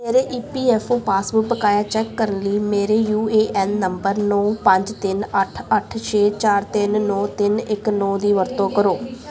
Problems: none marked